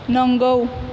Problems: constant background noise